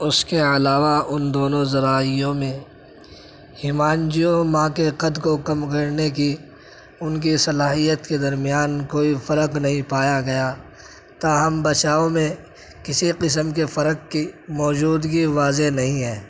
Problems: none marked